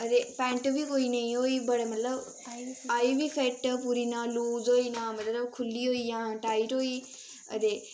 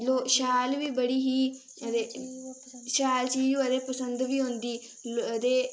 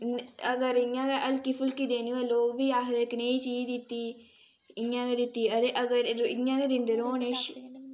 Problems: constant background noise, background conversations at intervals